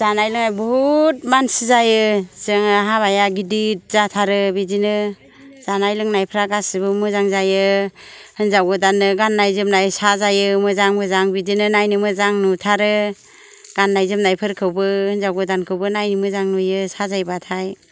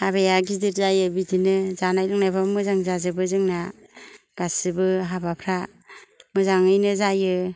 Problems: none marked